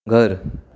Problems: background sounds at intervals